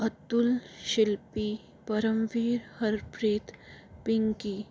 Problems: none marked